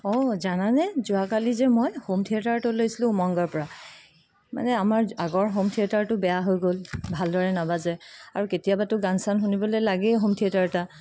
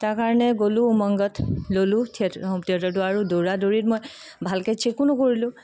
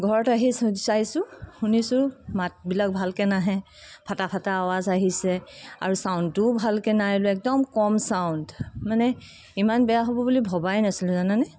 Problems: background sounds at intervals